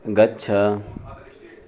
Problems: background conversations at intervals